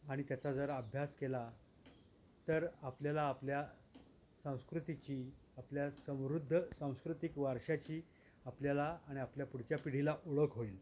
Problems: constant background noise